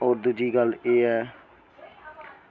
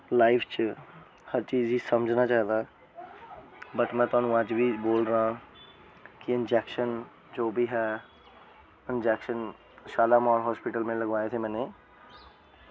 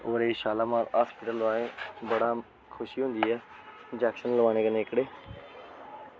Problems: constant background noise